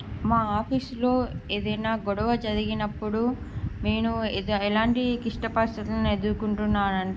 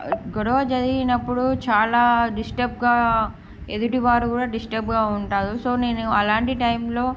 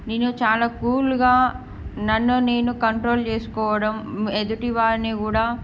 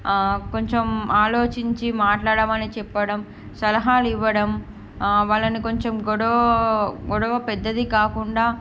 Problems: background sounds at intervals